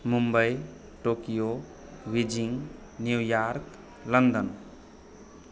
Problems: background conversations at intervals